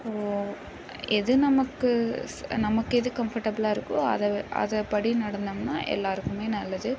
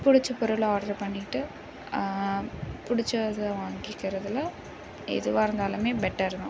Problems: constant background noise